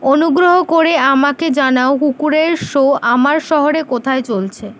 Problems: none marked